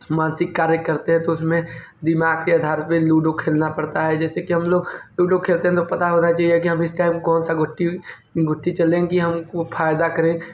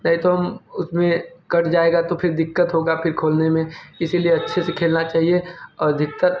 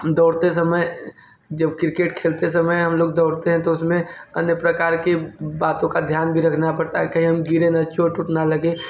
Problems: none marked